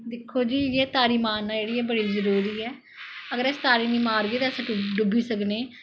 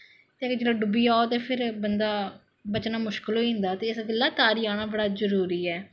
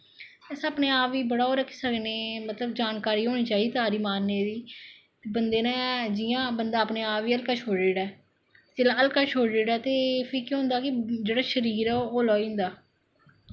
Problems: echo